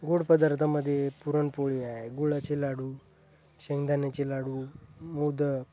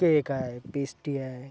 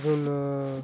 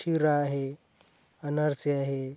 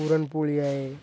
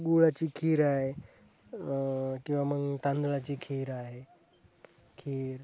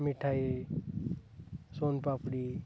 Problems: none marked